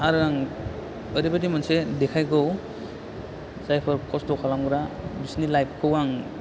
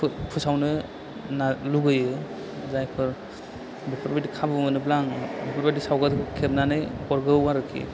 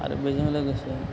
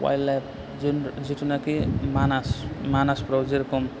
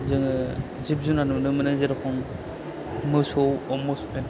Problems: constant background noise